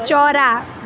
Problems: constant background noise